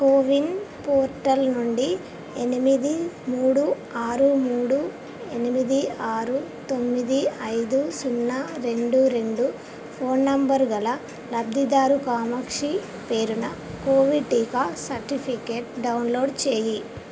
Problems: constant background noise